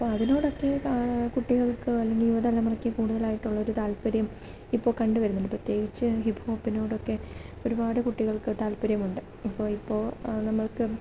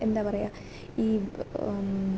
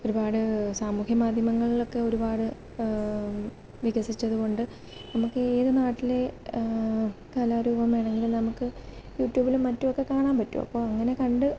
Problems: constant background noise, low volume